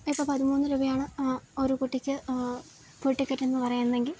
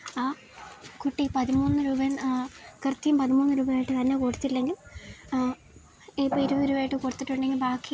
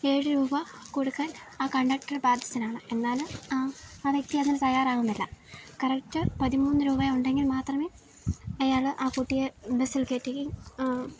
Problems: constant background noise